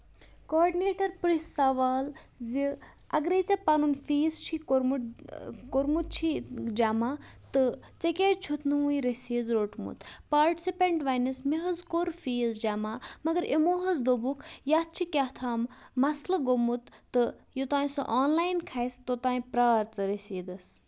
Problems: background sounds at intervals